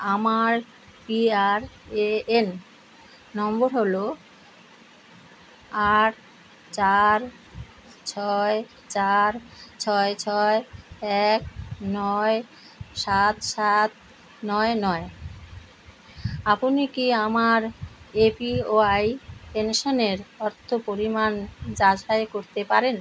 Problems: constant background noise